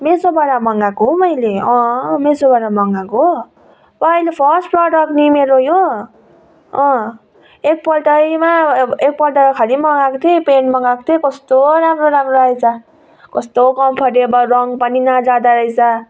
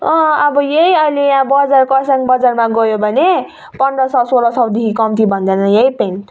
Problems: background sounds at intervals